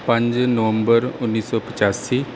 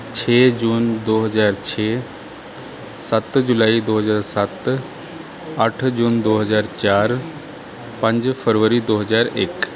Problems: background sounds at intervals